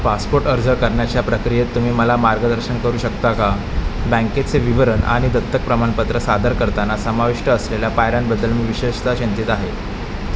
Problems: constant background noise